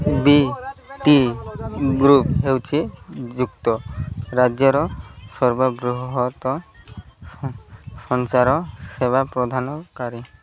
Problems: constant background noise, background conversations at intervals